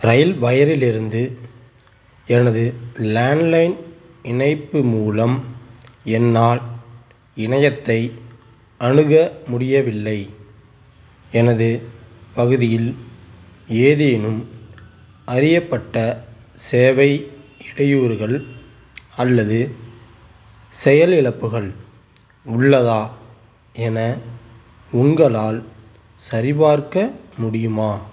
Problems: background sounds at intervals